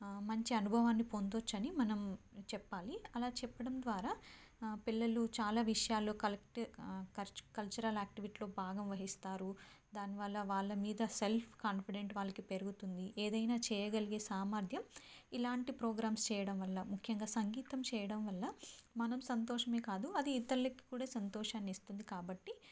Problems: low volume